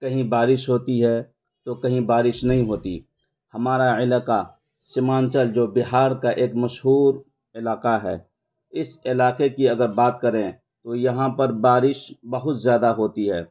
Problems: constant background noise